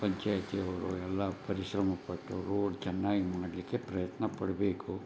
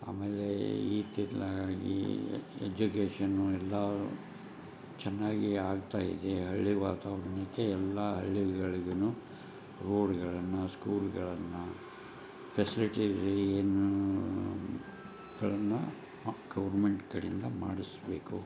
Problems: none marked